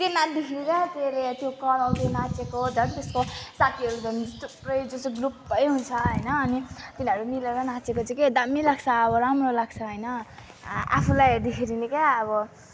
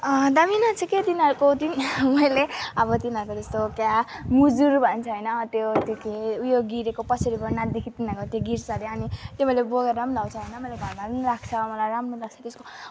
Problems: constant background noise